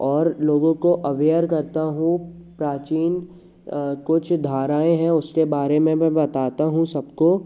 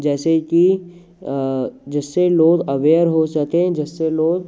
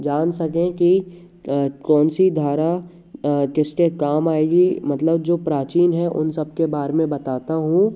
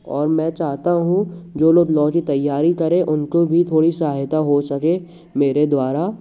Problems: none marked